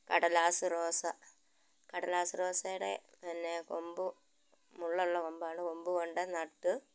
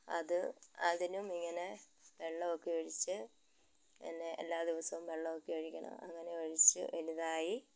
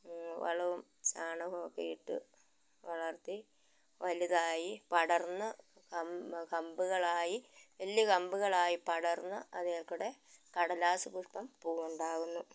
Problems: constant background noise